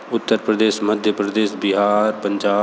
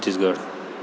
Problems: constant background noise